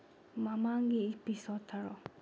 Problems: low volume